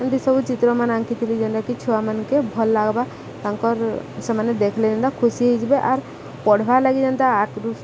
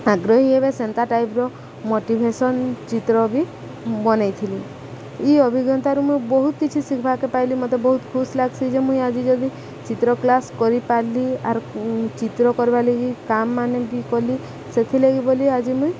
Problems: constant background noise, background conversations at intervals